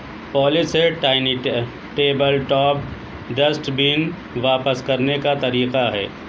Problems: constant background noise